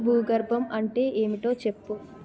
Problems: continuous background conversations